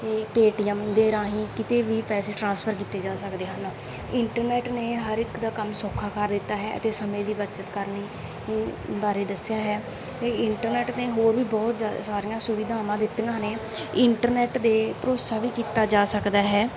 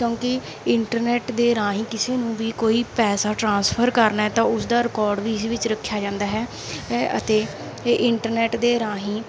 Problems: background sounds at intervals